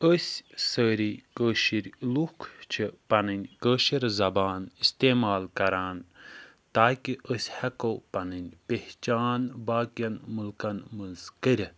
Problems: none marked